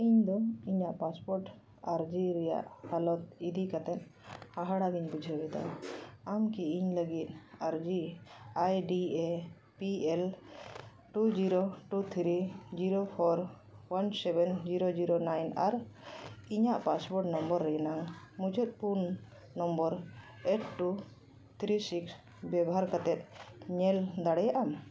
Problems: none marked